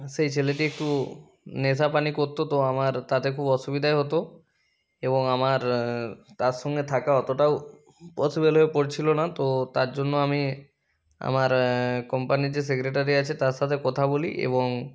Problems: background sounds at intervals